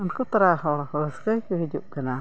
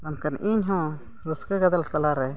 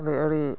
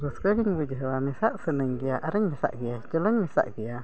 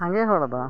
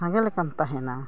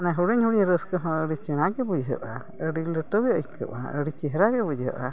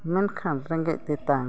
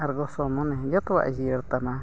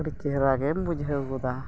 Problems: background sounds at intervals